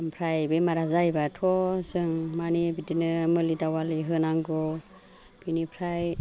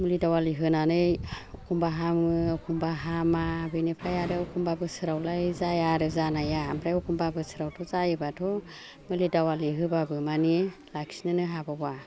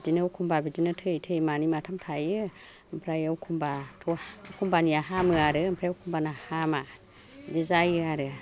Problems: low volume